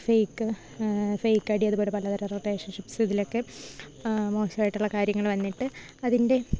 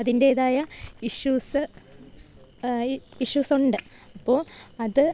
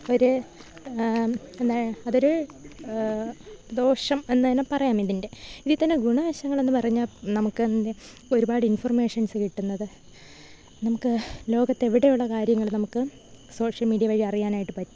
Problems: none marked